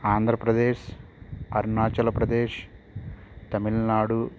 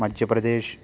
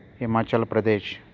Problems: constant background noise